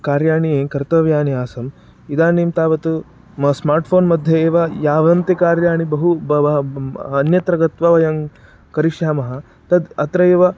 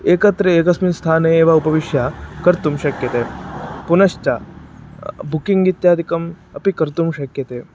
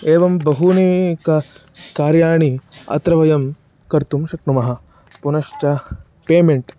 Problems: background sounds at intervals